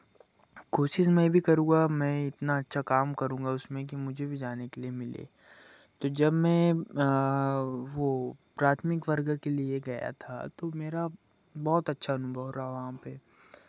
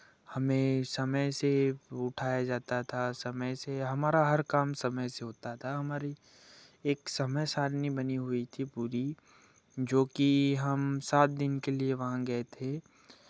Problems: none marked